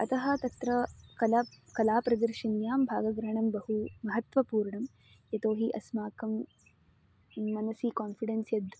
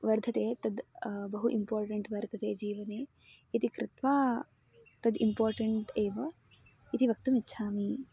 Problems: constant background noise